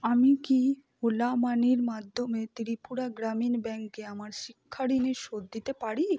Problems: low volume